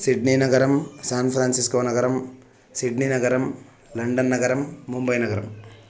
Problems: none marked